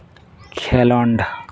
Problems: constant background noise